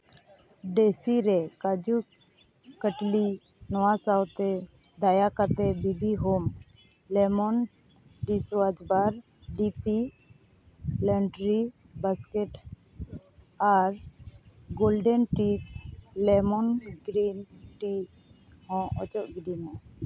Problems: constant background noise